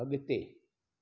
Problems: echo